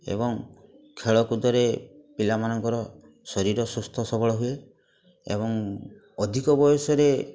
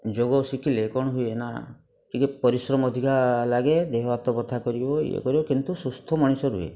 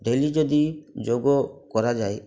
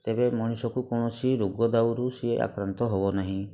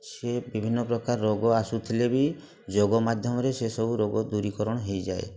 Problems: constant background noise, continuous background conversations